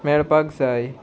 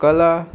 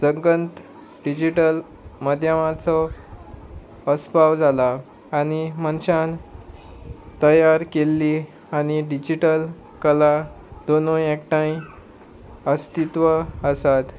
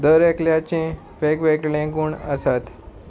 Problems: background sounds at intervals